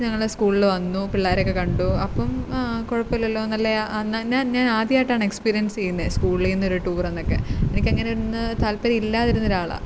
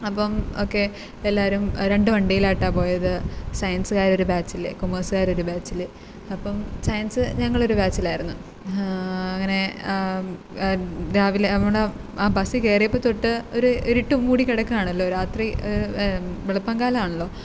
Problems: background sounds at intervals